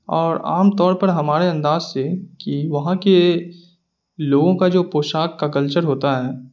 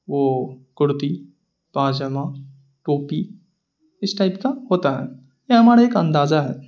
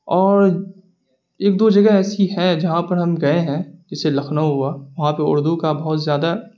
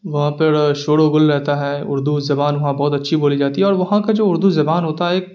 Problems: none marked